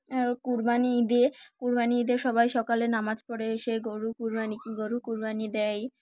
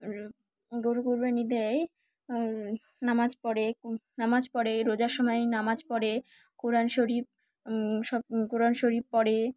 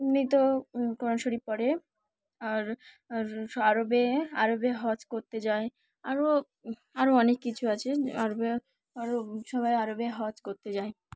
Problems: none marked